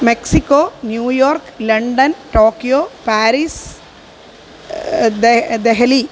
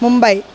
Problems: constant background noise